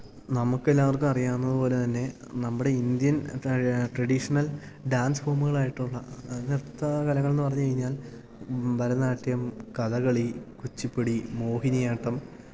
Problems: low volume